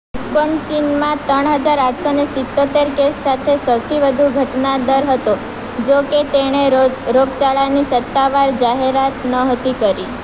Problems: constant background noise